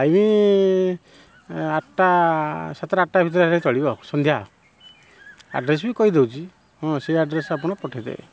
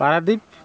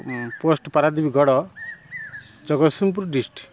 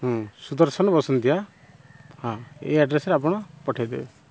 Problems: constant background noise